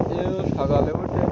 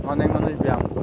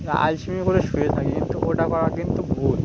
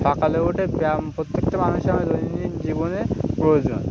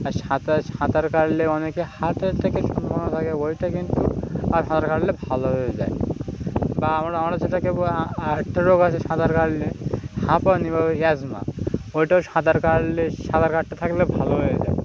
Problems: none marked